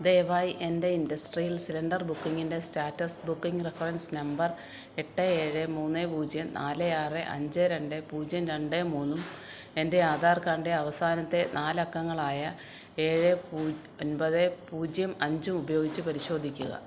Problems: background sounds at intervals